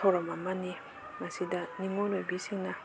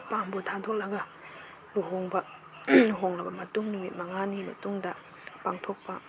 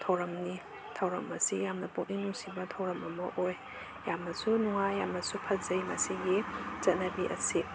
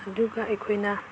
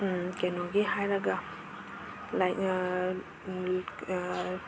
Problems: constant background noise